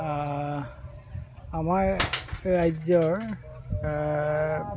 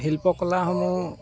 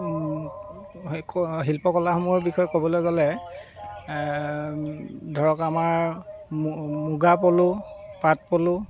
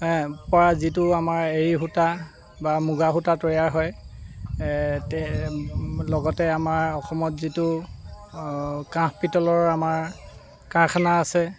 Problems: constant background noise